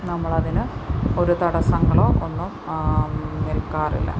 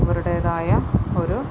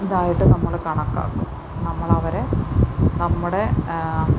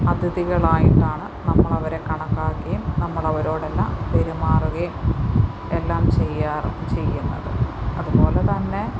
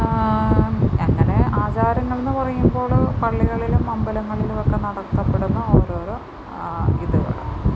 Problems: constant background noise